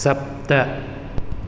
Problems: none marked